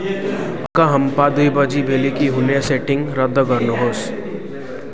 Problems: background sounds at intervals